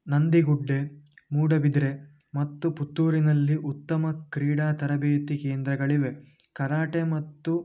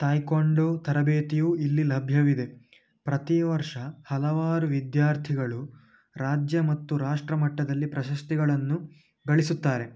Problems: none marked